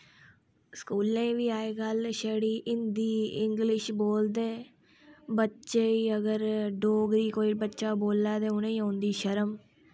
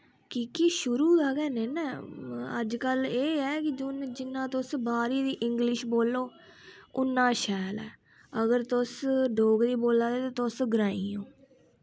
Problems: none marked